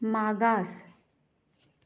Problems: none marked